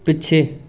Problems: background conversations at intervals